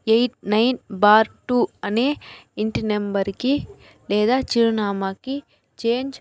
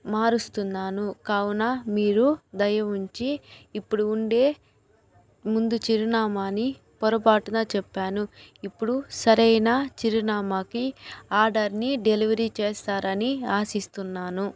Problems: background conversations at intervals